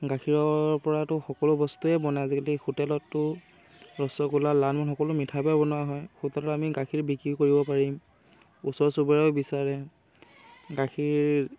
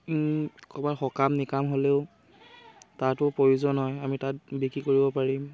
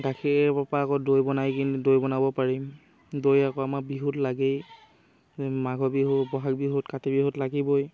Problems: constant background noise, background conversations at intervals